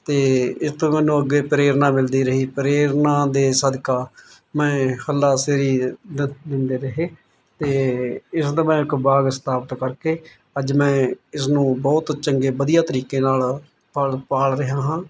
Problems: none marked